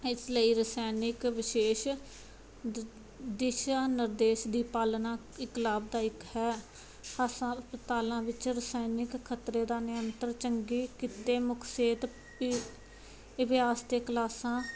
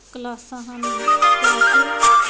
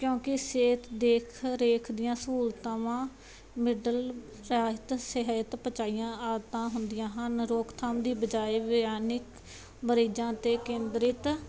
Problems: none marked